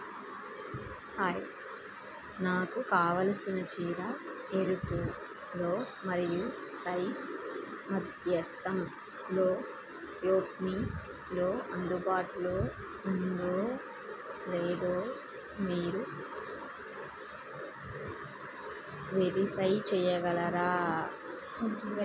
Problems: constant background noise